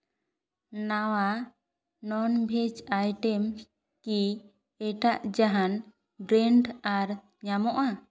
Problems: none marked